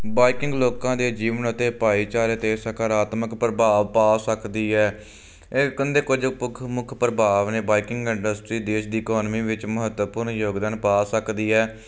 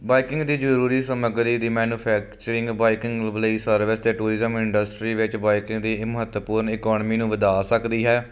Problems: constant background noise